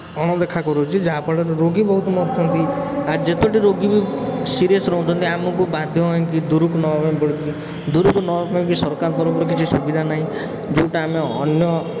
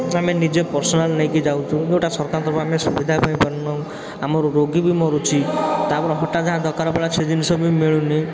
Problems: constant background noise